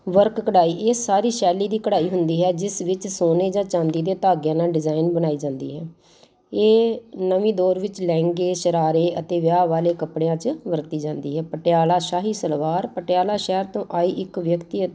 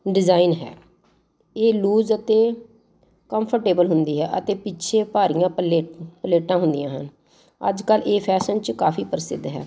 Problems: constant background noise